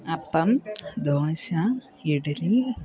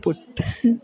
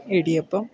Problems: background sounds at intervals